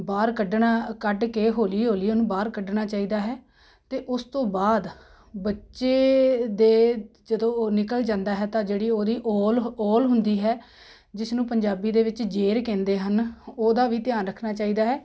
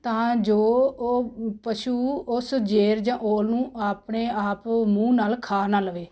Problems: constant background noise